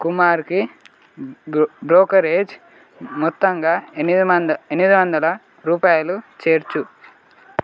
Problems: constant background noise